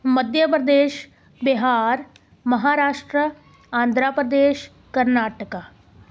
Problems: background conversations at intervals